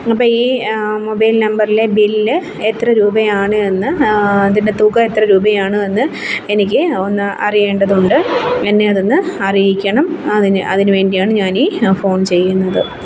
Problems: constant background noise